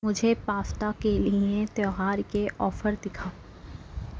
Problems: none marked